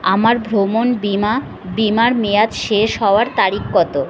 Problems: background conversations at intervals